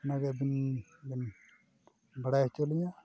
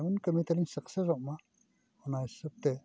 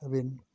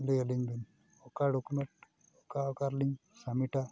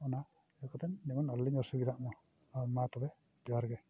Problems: background sounds at intervals